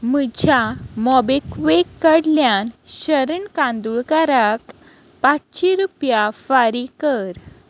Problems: constant background noise